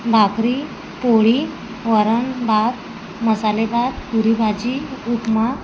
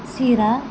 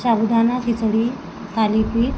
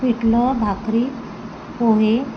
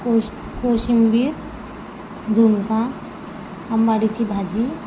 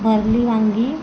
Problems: constant background noise